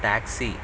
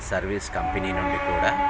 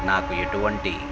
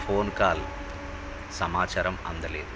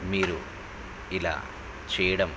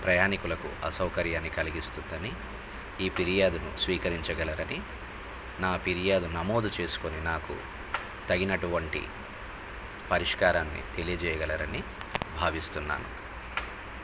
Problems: constant background noise